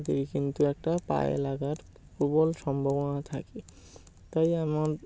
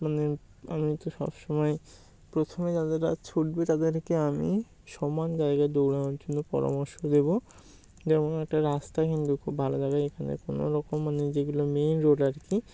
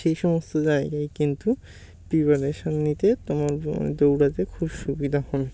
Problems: background sounds at intervals